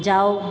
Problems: constant background noise